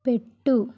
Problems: none marked